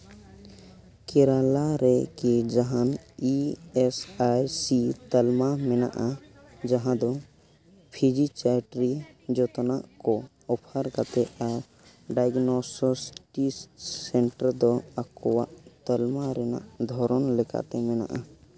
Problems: none marked